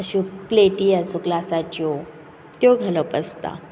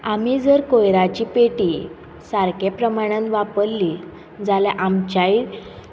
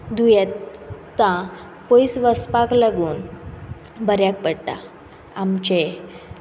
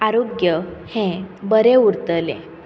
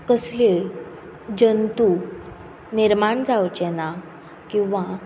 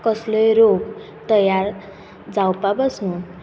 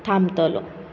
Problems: none marked